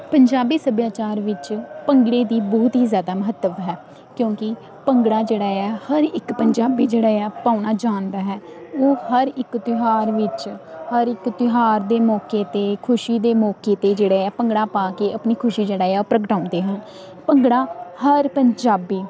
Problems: constant background noise